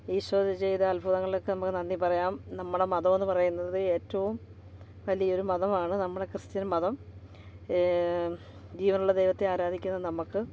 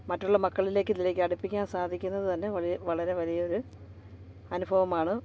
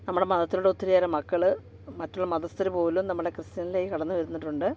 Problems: background sounds at intervals, background conversations at intervals